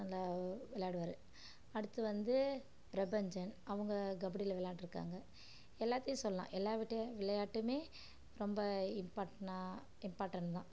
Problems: low volume